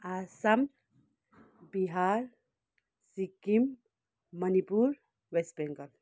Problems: none marked